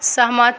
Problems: none marked